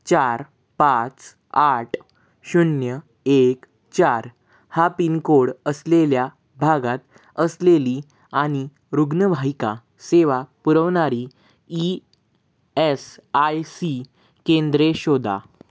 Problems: constant background noise